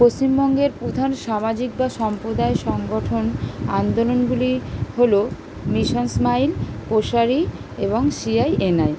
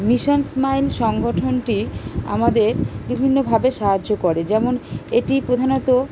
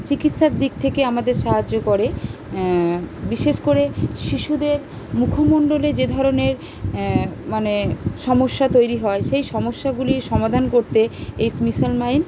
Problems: none marked